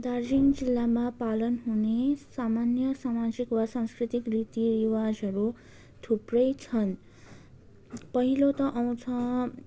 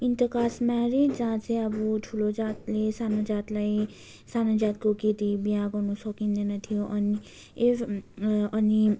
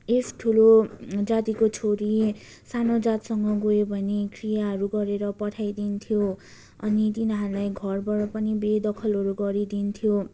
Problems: background sounds at intervals, continuous background conversations